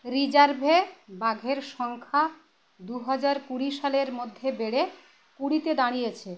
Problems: constant background noise